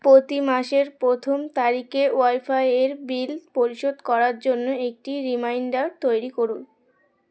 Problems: constant background noise, background conversations at intervals